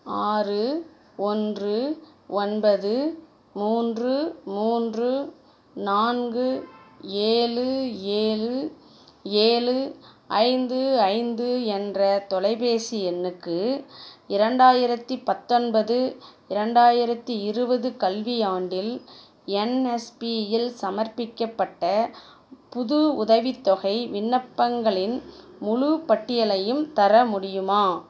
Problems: none marked